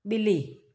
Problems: none marked